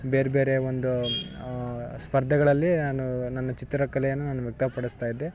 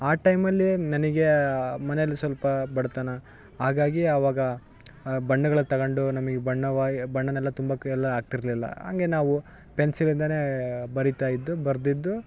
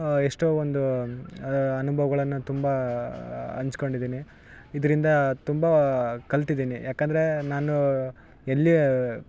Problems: background sounds at intervals